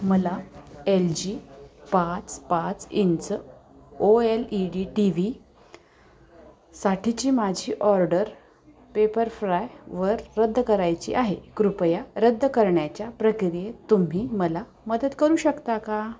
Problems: constant background noise, background conversations at intervals